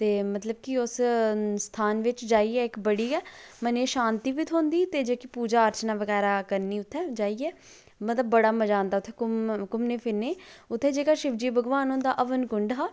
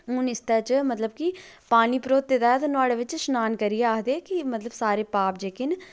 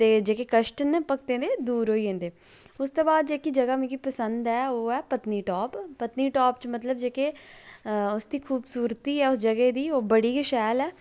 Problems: low volume